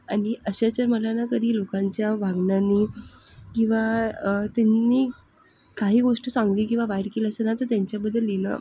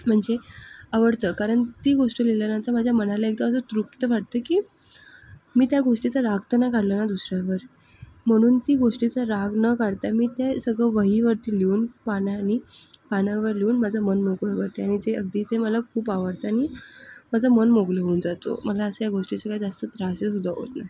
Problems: none marked